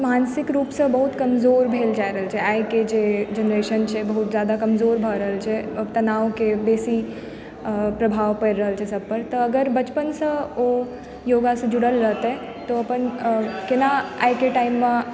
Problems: background sounds at intervals, background conversations at intervals